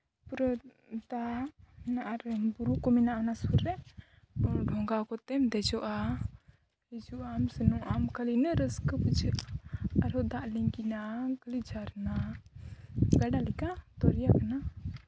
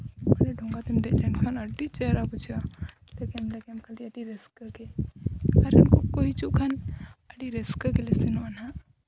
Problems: none marked